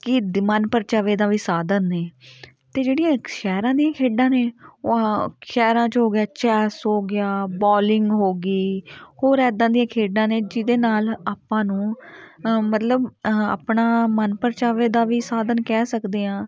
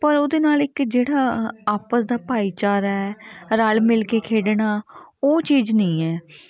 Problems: continuous background conversations